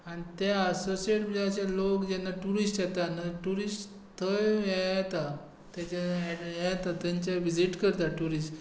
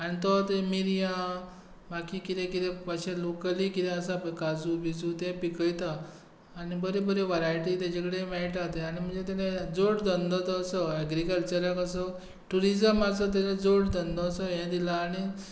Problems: background sounds at intervals